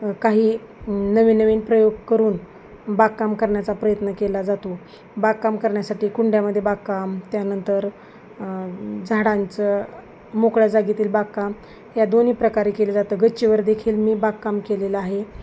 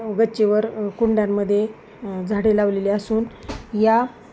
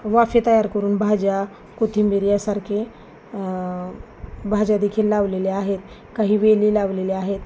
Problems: constant background noise, background conversations at intervals